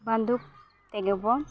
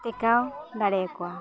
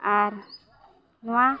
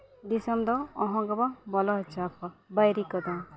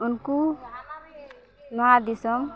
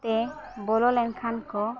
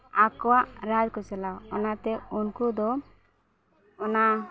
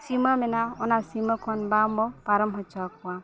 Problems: background sounds at intervals